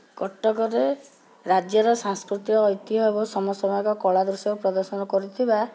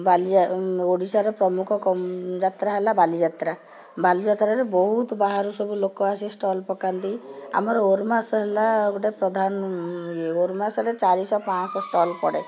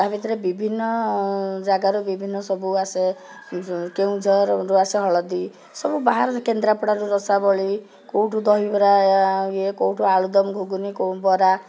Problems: background conversations at intervals